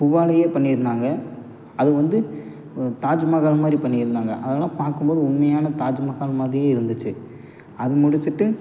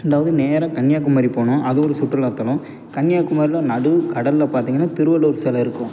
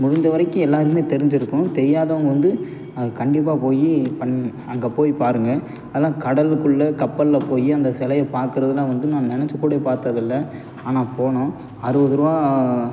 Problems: none marked